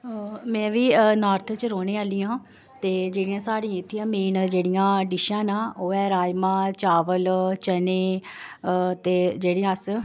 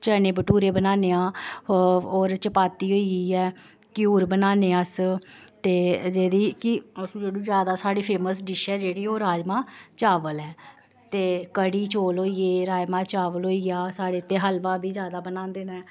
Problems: none marked